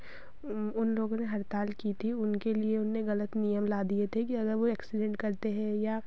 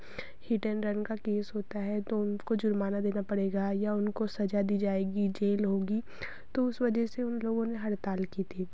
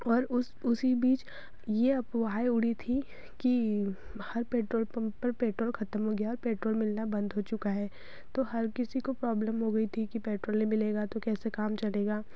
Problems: none marked